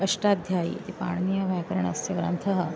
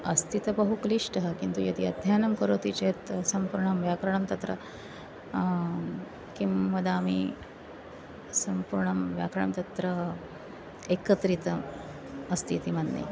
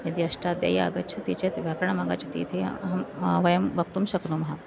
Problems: background sounds at intervals